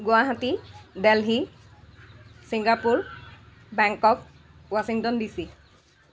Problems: constant background noise, continuous background conversations